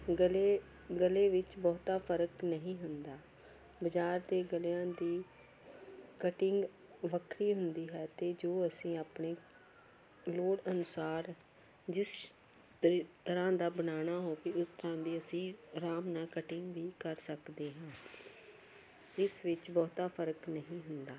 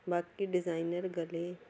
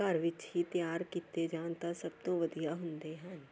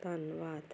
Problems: background sounds at intervals